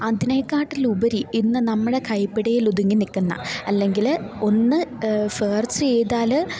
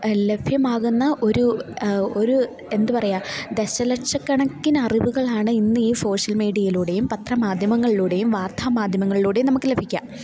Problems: constant background noise, low volume